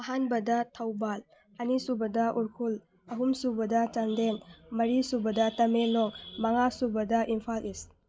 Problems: background conversations at intervals